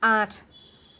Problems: constant background noise